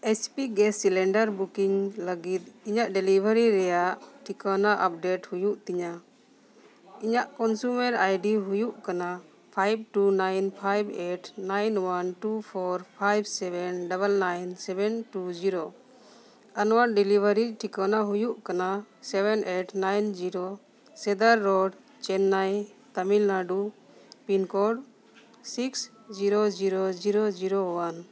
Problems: none marked